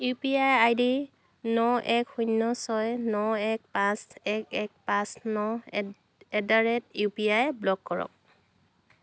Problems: none marked